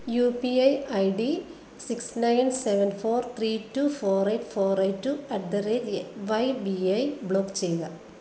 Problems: constant background noise